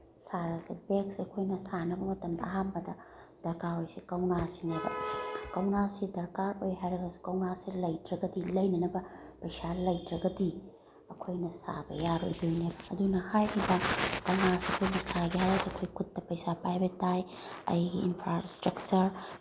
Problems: none marked